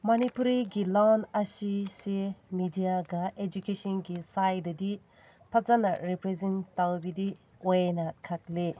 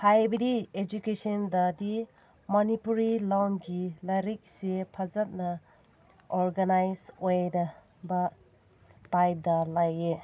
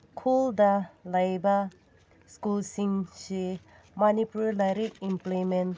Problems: none marked